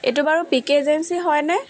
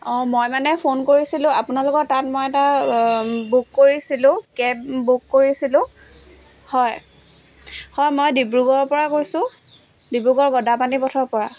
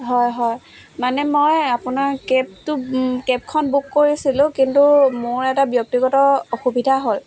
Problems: background sounds at intervals, background conversations at intervals